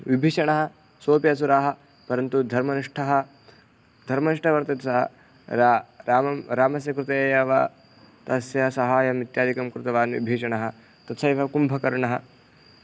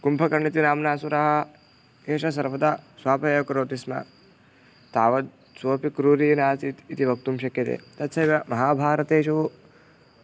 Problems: background sounds at intervals